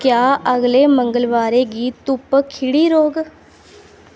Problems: none marked